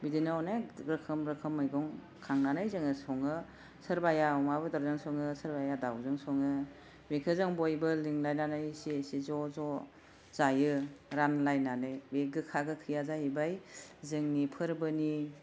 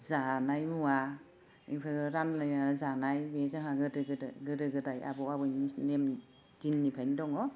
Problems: none marked